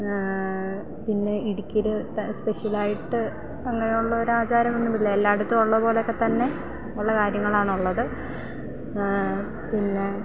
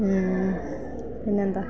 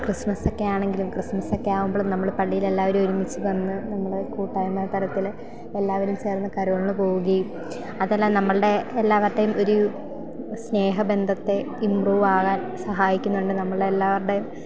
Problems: none marked